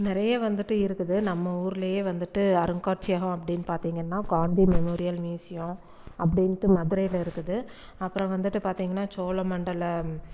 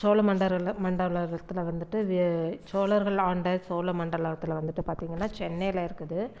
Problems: none marked